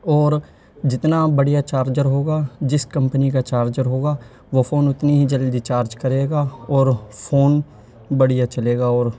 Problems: background sounds at intervals, low volume